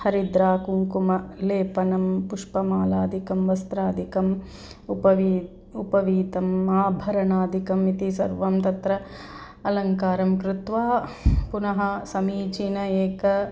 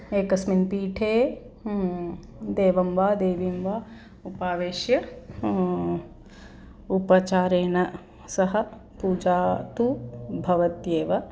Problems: background sounds at intervals